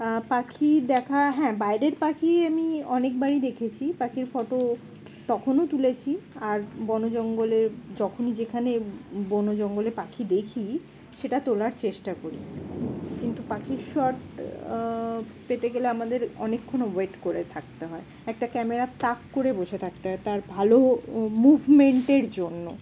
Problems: constant background noise